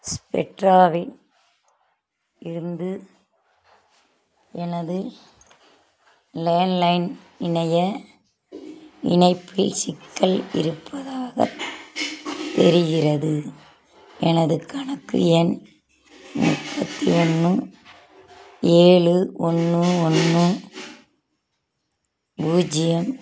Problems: constant background noise